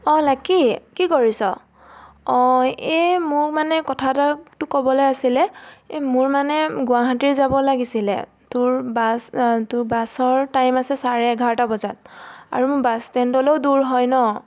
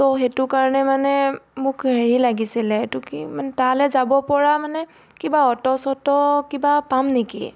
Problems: constant background noise